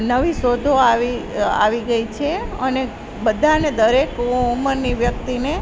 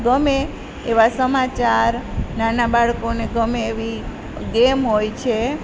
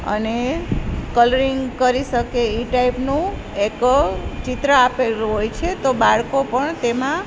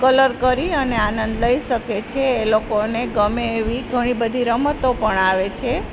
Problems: constant background noise